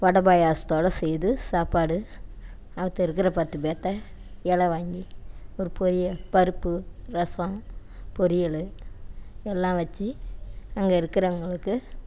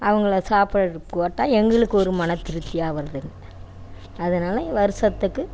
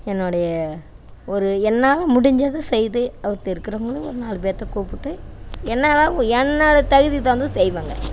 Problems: none marked